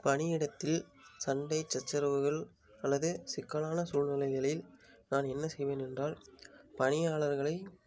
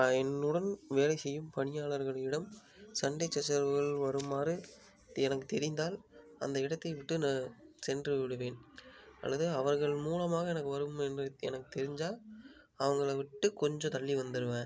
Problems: low volume